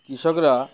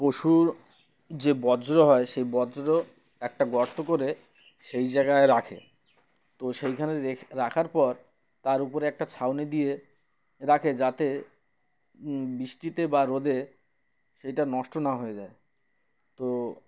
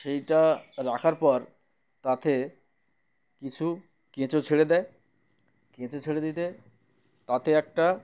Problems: none marked